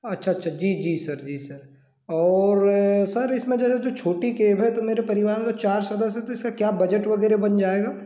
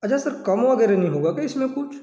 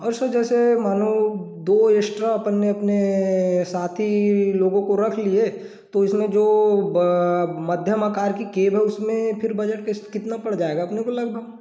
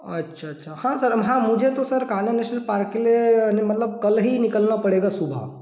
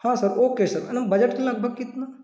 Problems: background sounds at intervals